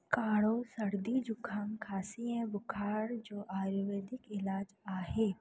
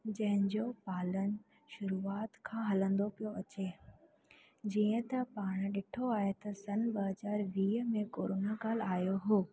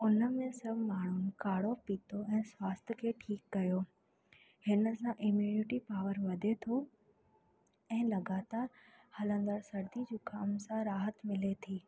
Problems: constant background noise, echo